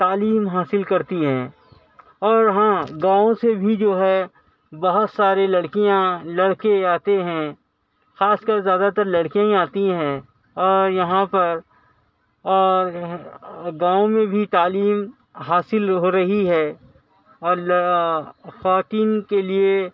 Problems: constant background noise